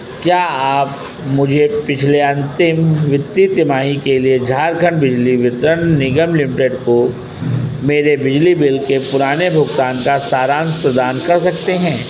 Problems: constant background noise